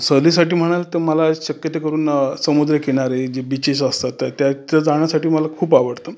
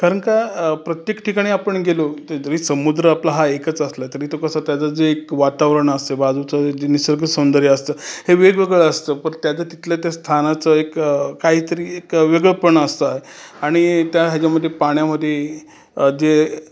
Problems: constant background noise